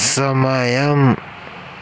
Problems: constant background noise